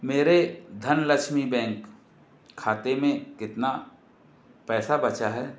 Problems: constant background noise